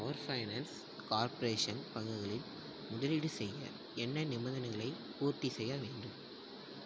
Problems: low volume